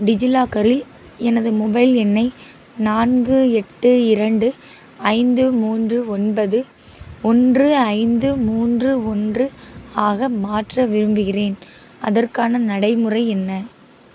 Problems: constant background noise